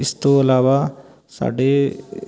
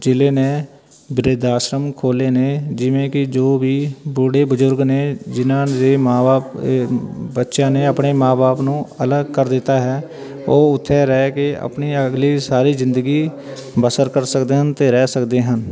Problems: background conversations at intervals